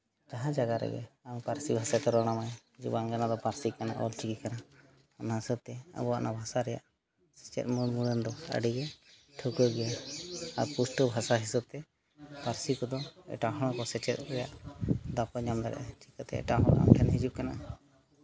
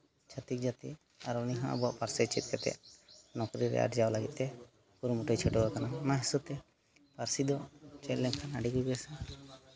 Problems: none marked